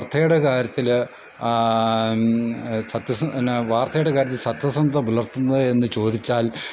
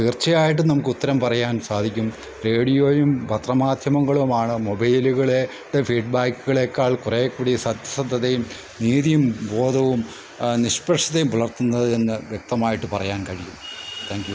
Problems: none marked